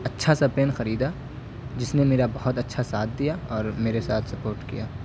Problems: constant background noise